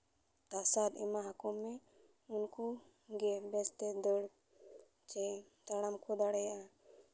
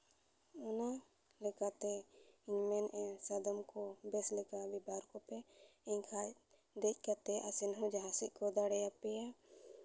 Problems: none marked